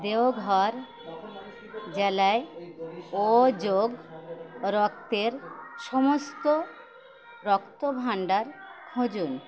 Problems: constant background noise, continuous background conversations